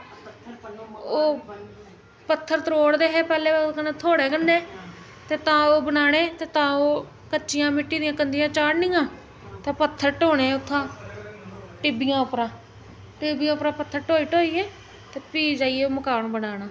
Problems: constant background noise